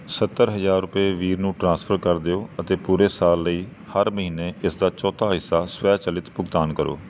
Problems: none marked